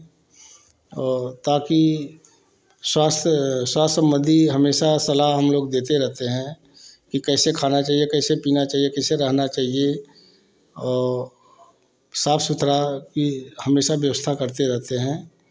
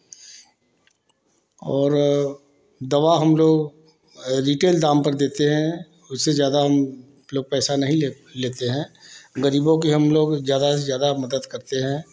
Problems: constant background noise